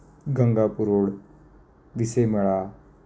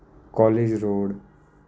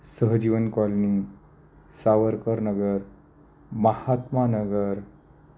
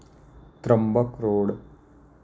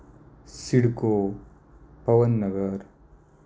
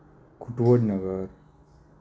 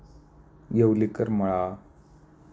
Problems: constant background noise, low volume